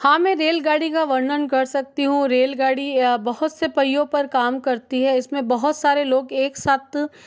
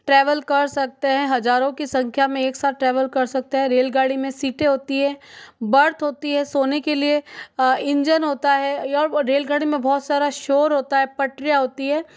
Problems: background sounds at intervals